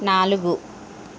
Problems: constant background noise